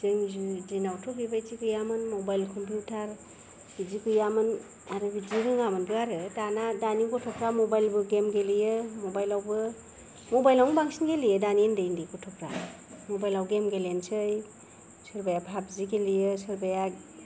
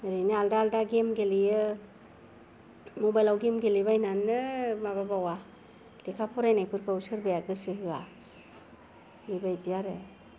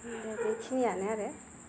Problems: none marked